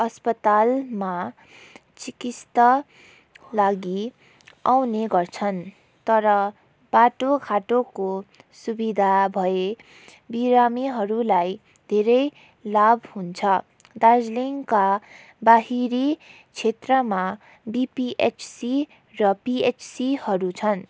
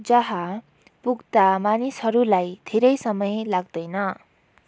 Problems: background sounds at intervals